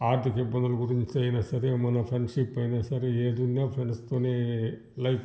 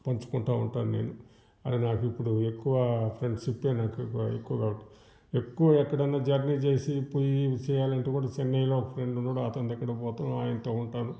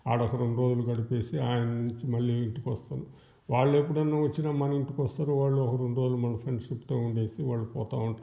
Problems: background sounds at intervals